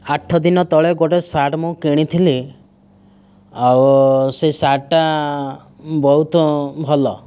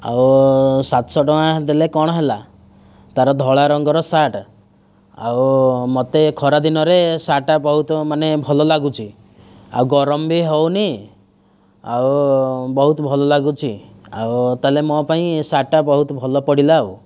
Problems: none marked